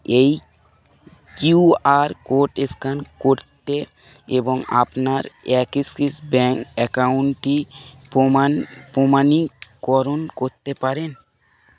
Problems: background sounds at intervals